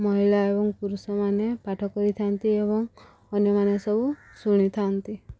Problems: none marked